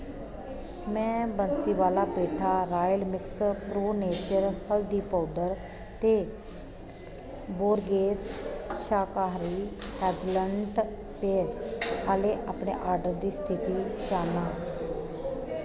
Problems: constant background noise